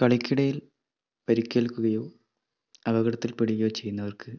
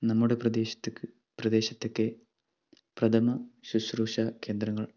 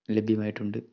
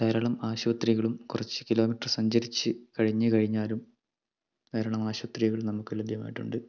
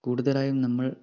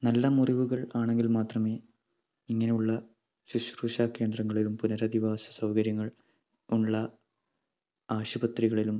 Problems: low volume